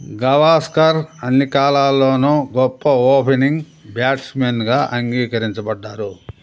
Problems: constant background noise